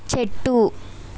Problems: none marked